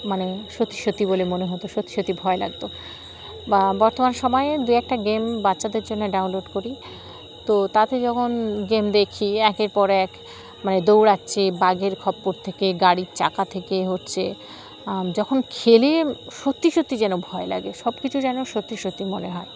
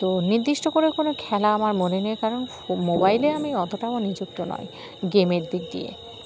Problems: constant background noise